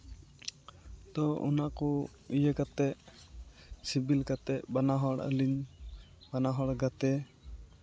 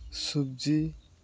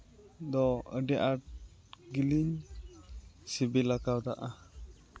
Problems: constant background noise, background conversations at intervals